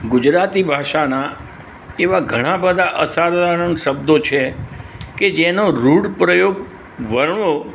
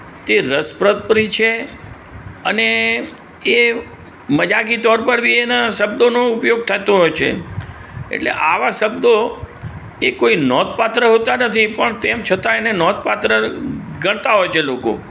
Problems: constant background noise